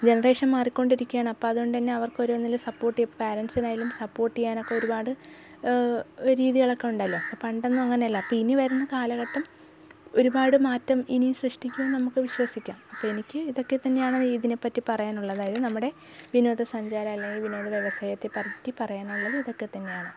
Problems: background sounds at intervals